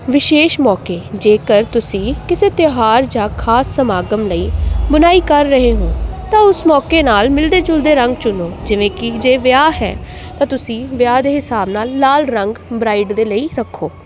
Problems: constant background noise